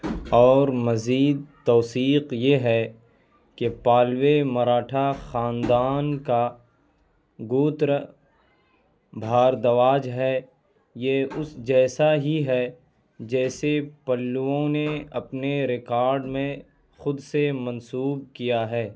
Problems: none marked